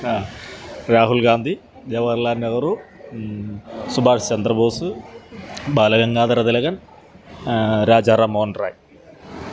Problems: background sounds at intervals